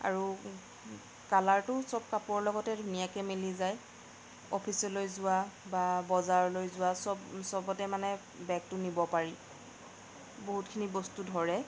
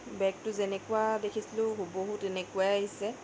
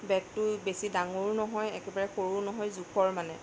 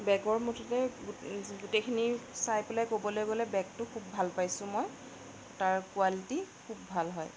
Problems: background sounds at intervals, background conversations at intervals